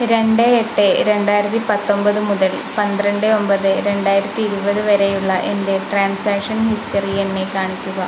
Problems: constant background noise